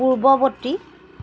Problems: constant background noise